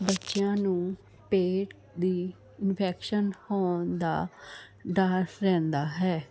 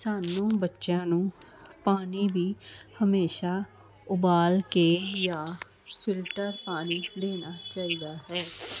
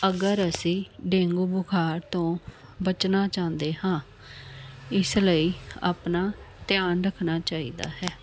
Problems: constant background noise